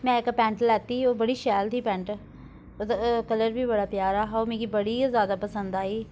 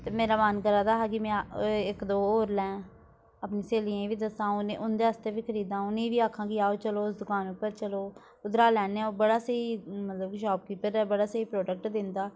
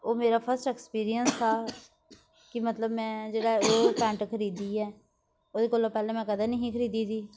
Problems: background sounds at intervals